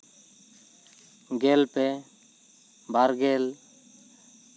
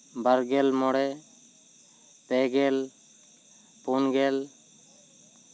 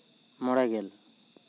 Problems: constant background noise